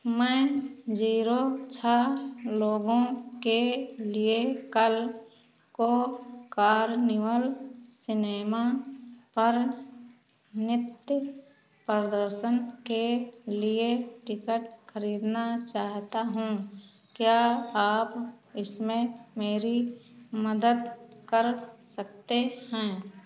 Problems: constant background noise